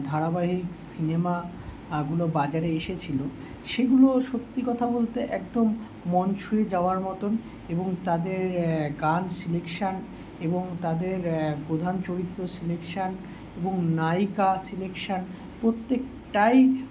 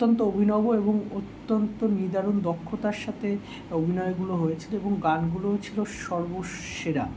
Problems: constant background noise